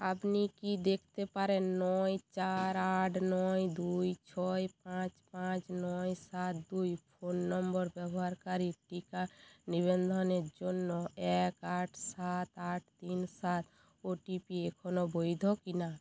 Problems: constant background noise